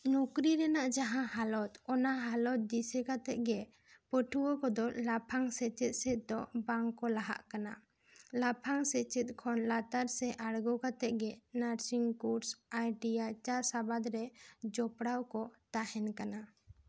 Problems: none marked